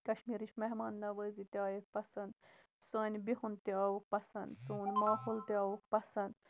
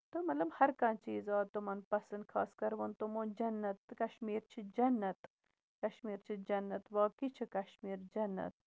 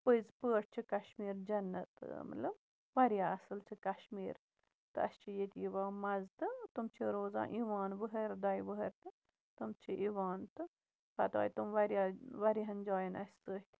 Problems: none marked